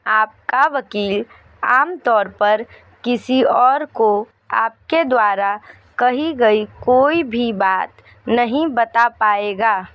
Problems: none marked